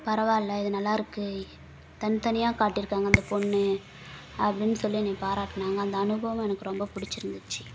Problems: background sounds at intervals